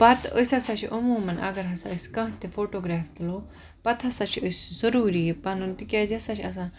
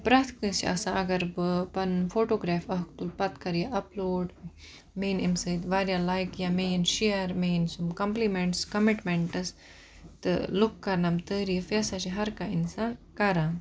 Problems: none marked